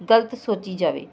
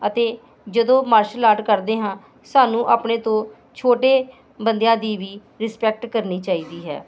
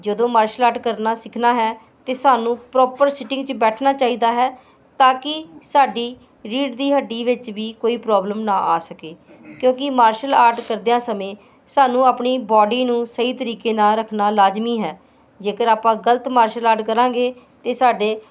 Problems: constant background noise